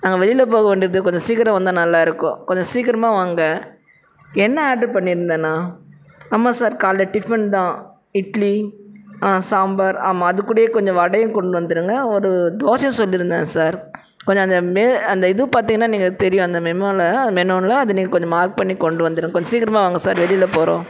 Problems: constant background noise, background conversations at intervals